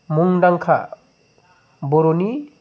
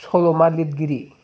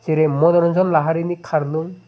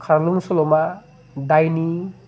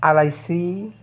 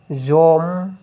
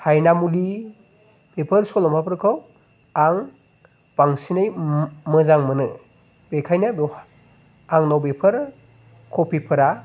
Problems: constant background noise